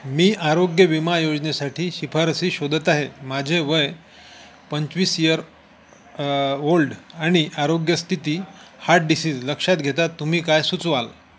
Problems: constant background noise, continuous background conversations